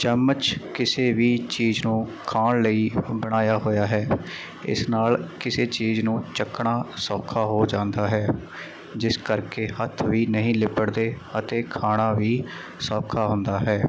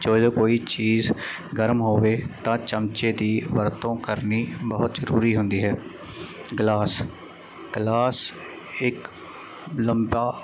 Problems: none marked